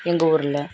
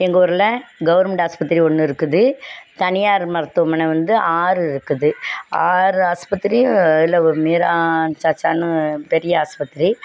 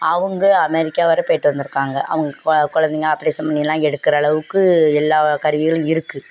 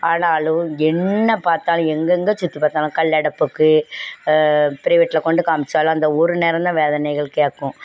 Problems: none marked